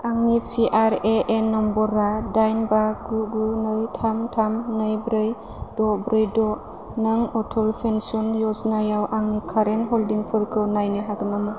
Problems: low volume